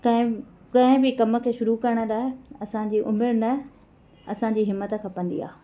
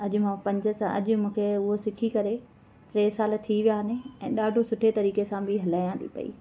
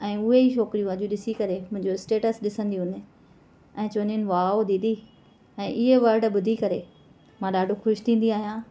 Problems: none marked